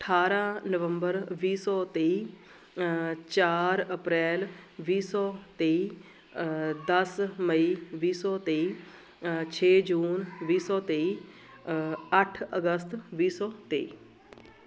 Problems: continuous background conversations